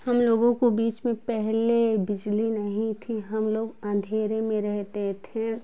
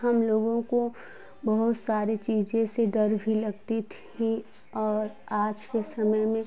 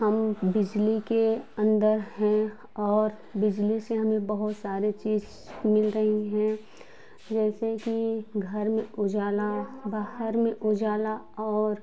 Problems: none marked